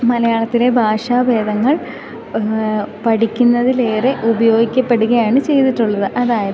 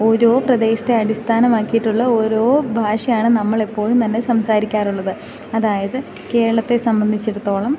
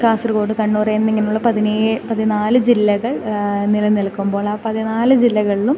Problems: constant background noise, low volume